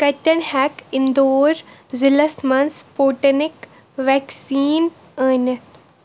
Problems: constant background noise